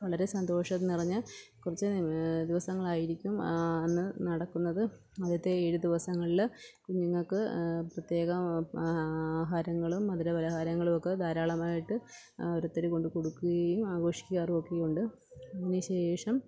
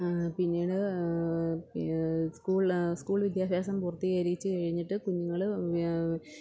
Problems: none marked